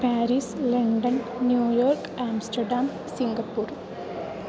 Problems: constant background noise